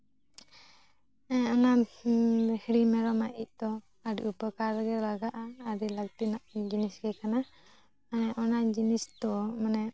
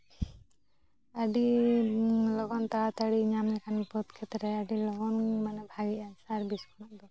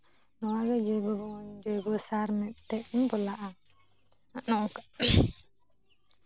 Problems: background sounds at intervals, background conversations at intervals